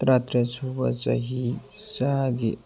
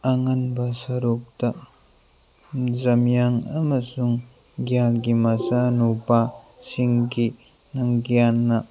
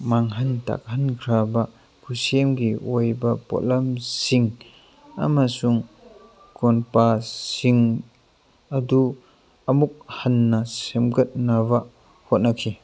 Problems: constant background noise, background conversations at intervals